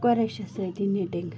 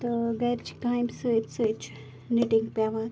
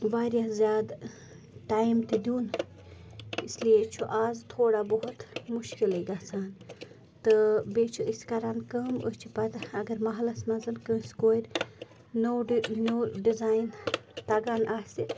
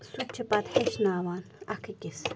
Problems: constant background noise, low volume